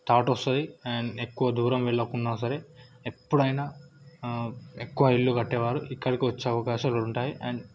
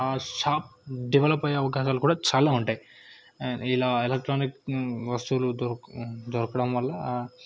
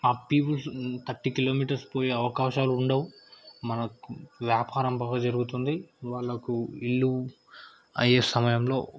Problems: background conversations at intervals